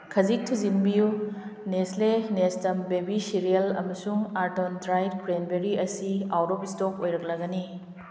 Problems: background sounds at intervals